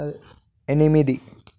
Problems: none marked